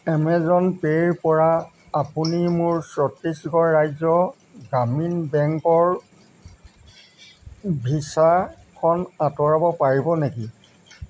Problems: none marked